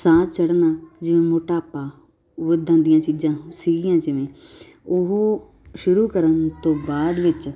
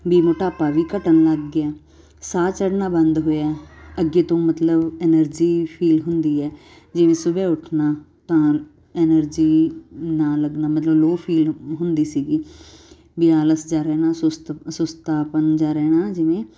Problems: none marked